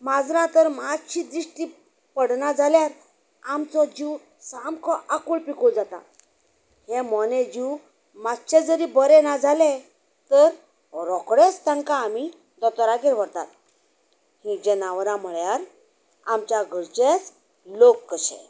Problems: background sounds at intervals